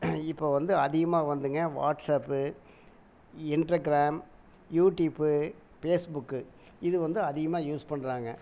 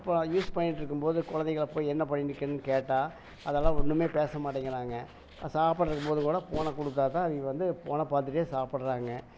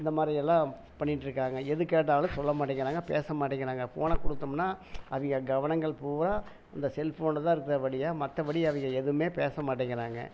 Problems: none marked